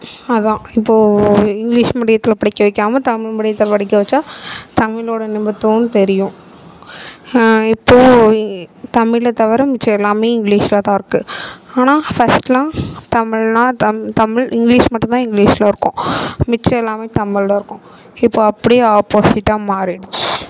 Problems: none marked